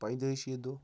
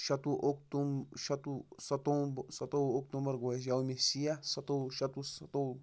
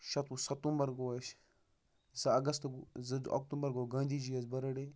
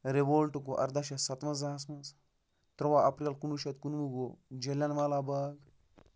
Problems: none marked